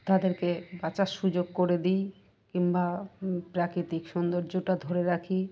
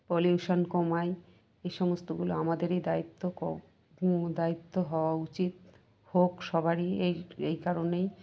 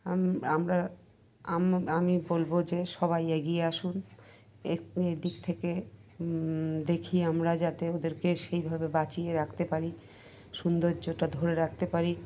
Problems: none marked